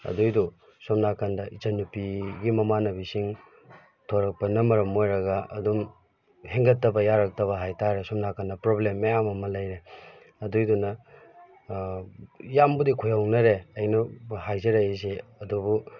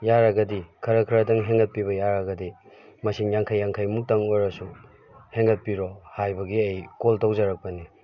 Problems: background sounds at intervals